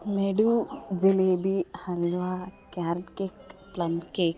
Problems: background sounds at intervals